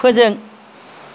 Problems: constant background noise